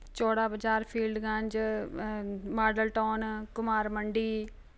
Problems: none marked